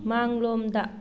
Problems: background sounds at intervals